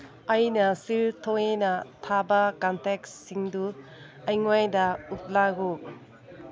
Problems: background conversations at intervals